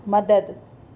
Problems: none marked